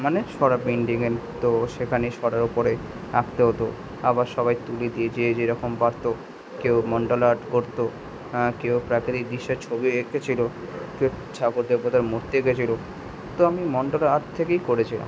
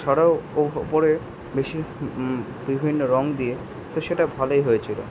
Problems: constant background noise